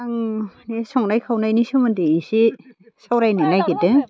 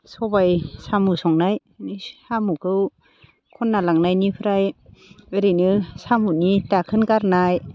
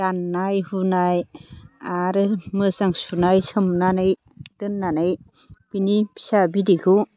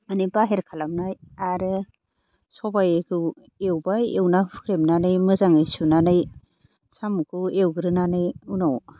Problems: none marked